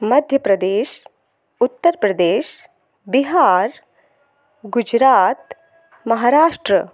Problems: constant background noise, echo